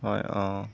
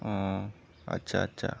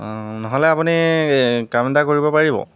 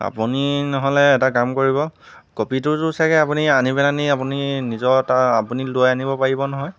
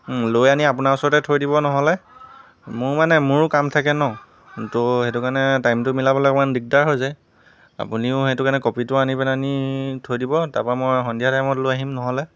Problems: constant background noise